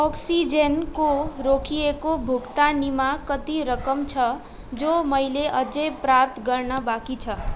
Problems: constant background noise